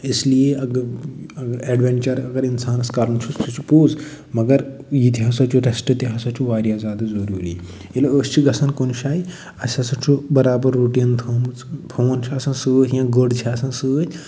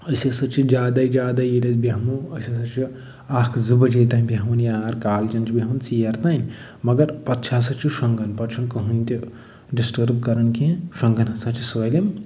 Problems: none marked